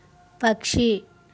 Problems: none marked